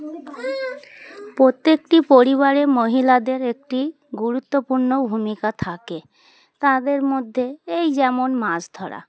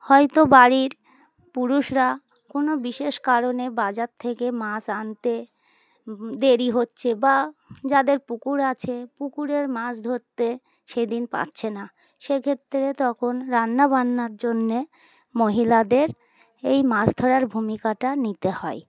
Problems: constant background noise, background conversations at intervals